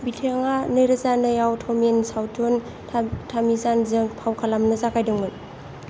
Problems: constant background noise